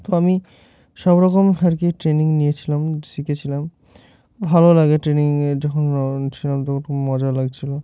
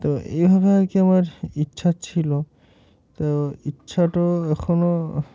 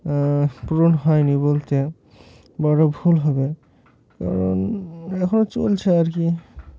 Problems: none marked